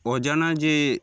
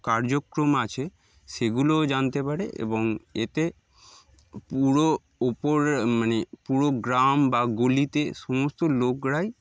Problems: background sounds at intervals